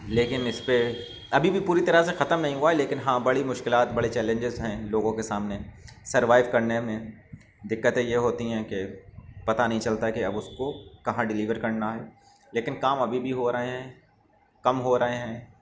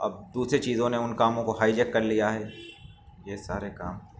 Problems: none marked